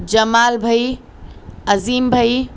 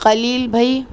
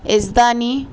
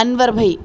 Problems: none marked